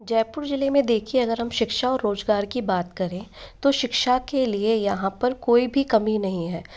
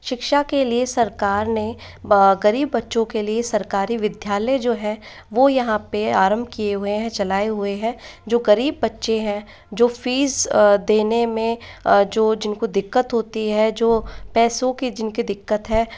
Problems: constant background noise, echo